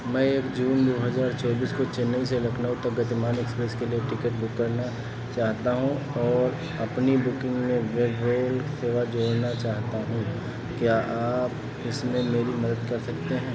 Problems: constant background noise